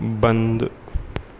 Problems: constant background noise